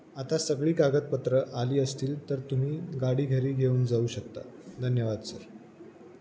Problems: constant background noise